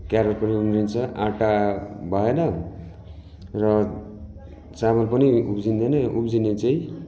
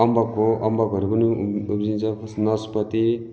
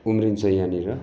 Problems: constant background noise